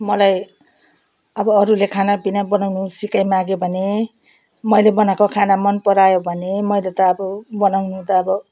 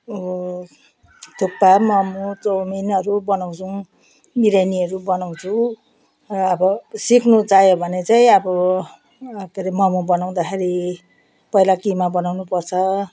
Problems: none marked